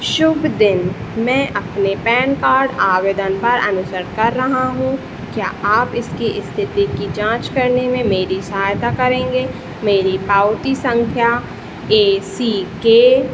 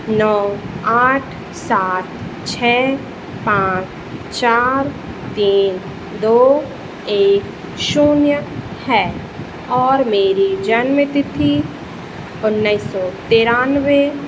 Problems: none marked